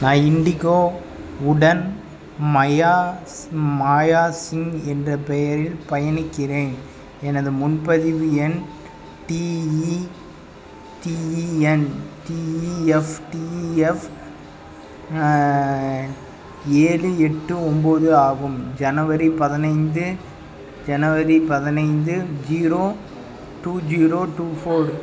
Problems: constant background noise, background conversations at intervals